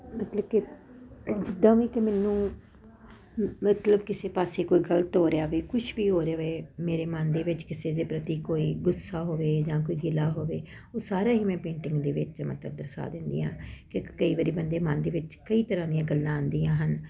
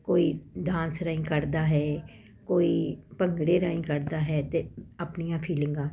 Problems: none marked